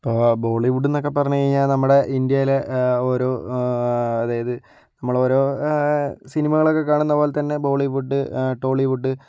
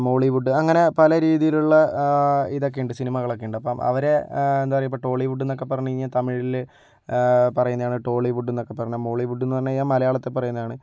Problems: none marked